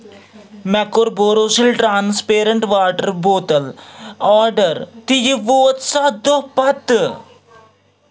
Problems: continuous background conversations